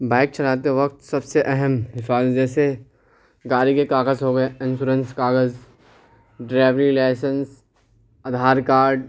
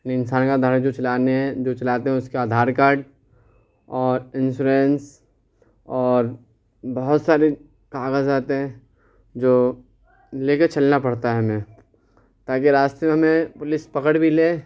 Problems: none marked